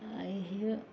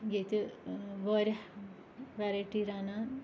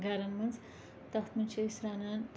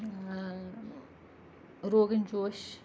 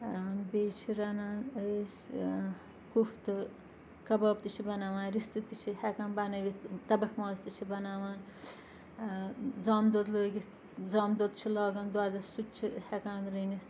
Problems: constant background noise, continuous background conversations